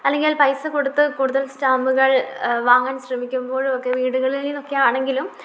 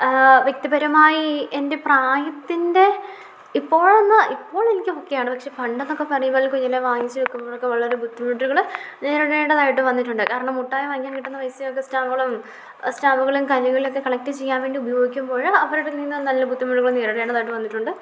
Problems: low volume